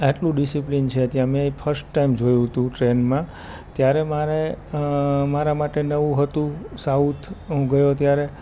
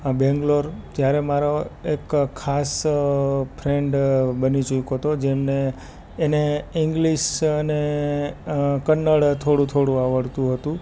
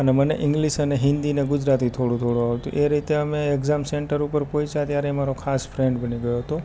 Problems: background sounds at intervals